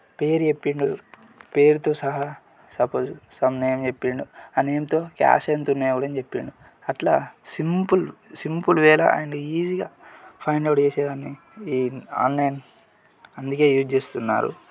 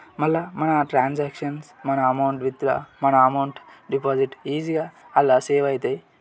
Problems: none marked